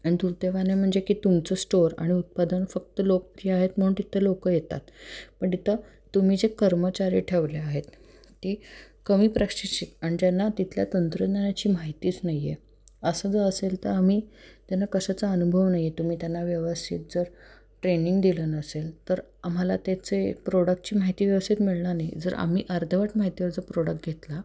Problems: background sounds at intervals